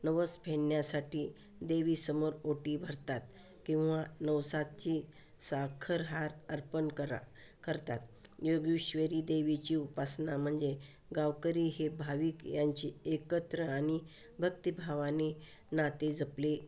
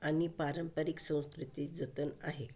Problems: constant background noise